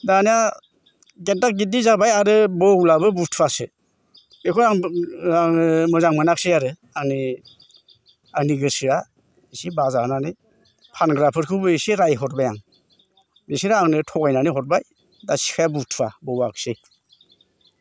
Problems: constant background noise